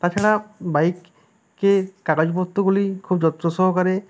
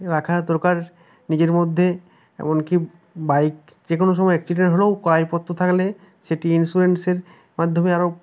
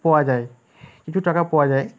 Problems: background conversations at intervals